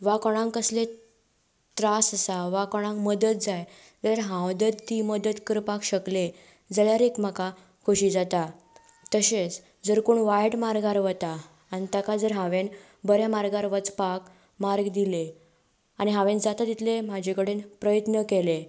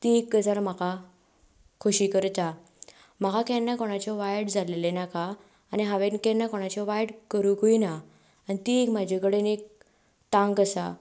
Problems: none marked